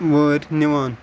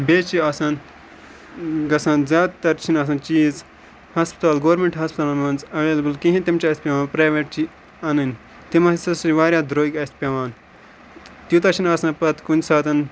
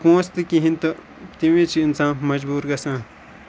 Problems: constant background noise